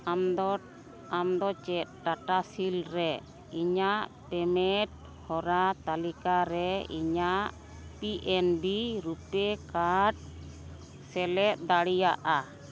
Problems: none marked